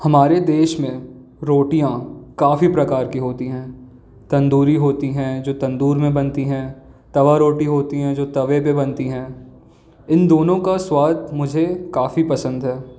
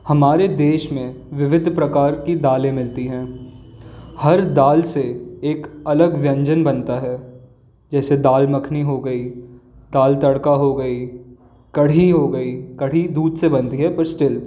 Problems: none marked